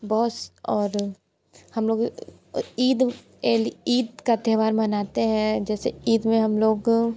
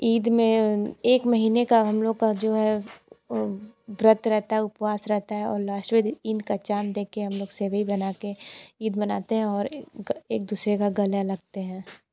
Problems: constant background noise